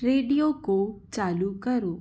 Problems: low volume